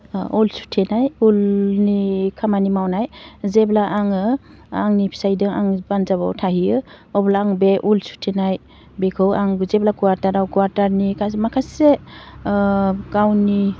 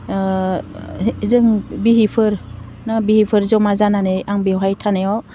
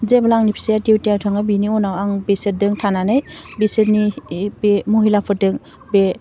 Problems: none marked